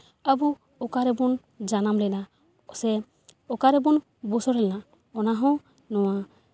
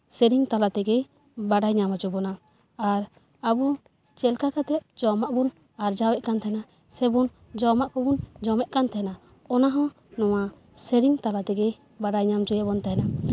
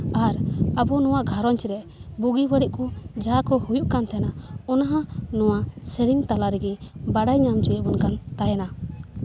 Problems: background sounds at intervals